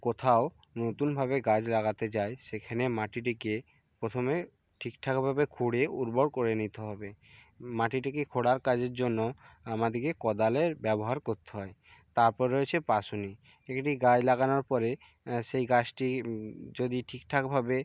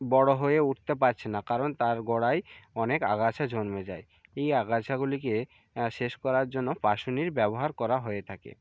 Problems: background conversations at intervals